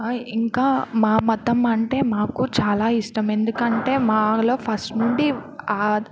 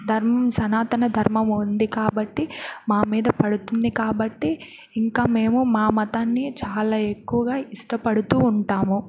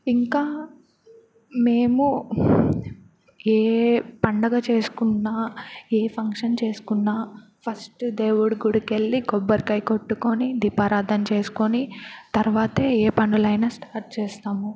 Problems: none marked